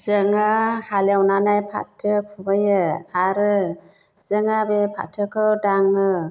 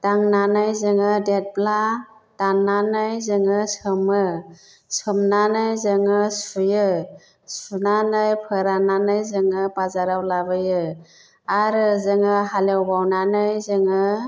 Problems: background conversations at intervals